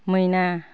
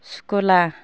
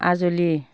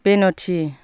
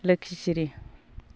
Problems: constant background noise